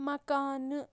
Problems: none marked